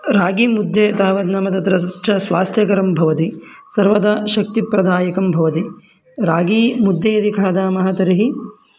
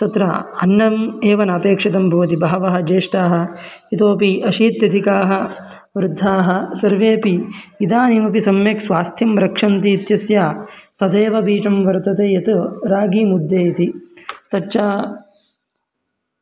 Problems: background sounds at intervals